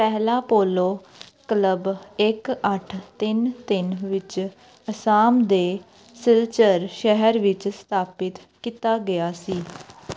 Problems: background sounds at intervals